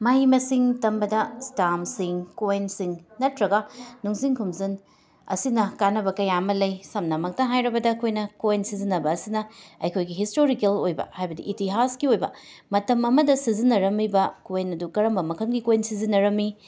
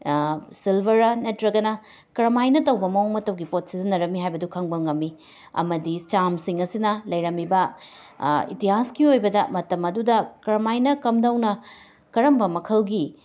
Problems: background sounds at intervals, background conversations at intervals